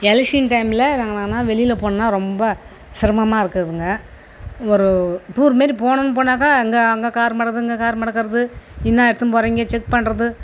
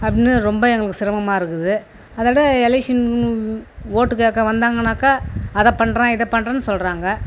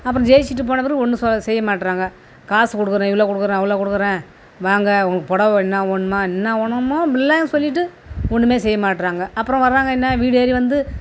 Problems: constant background noise